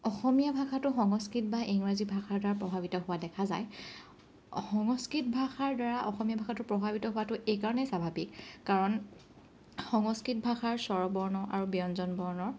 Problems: none marked